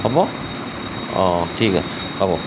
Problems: constant background noise